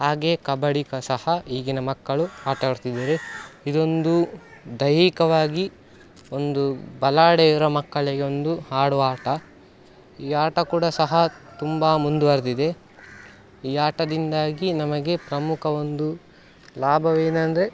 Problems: background sounds at intervals